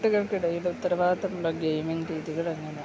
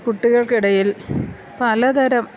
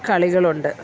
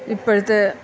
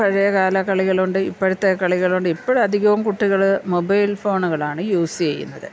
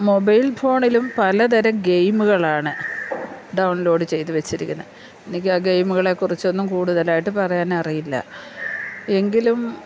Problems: low volume